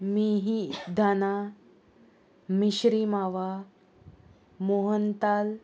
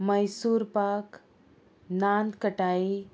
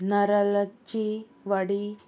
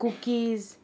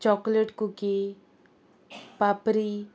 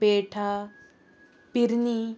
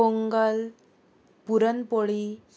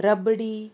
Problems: constant background noise